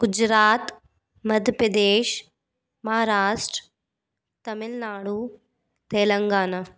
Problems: none marked